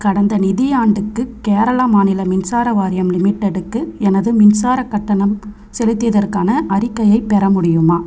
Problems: constant background noise